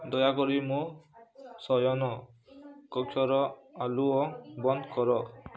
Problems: low volume